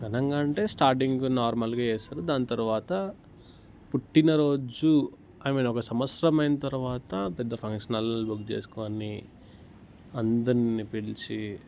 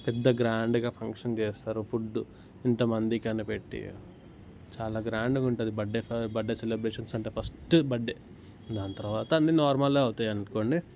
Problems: background sounds at intervals